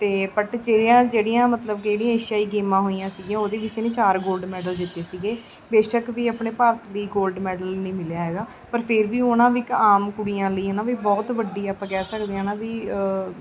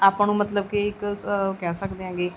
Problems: background sounds at intervals, background conversations at intervals